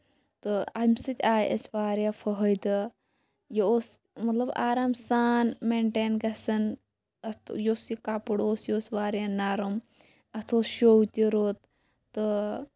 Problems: none marked